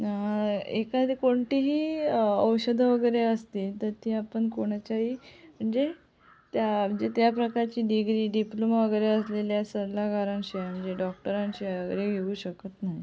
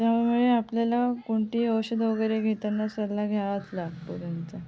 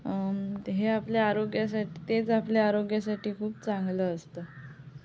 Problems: background sounds at intervals